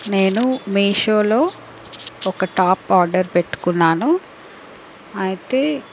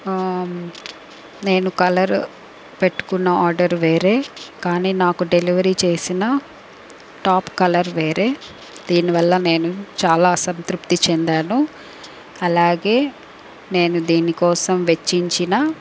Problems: background sounds at intervals